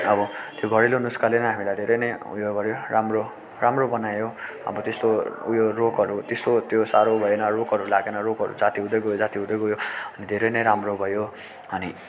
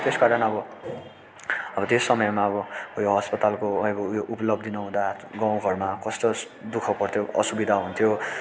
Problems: constant background noise